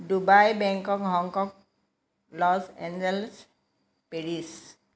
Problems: none marked